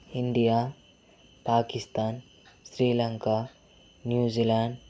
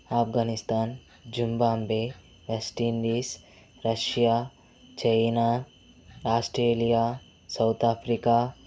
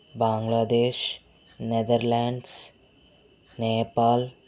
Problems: none marked